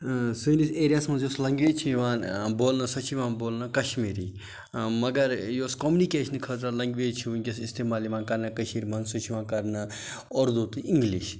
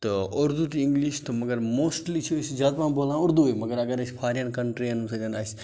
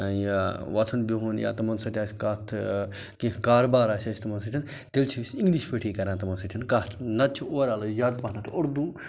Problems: background sounds at intervals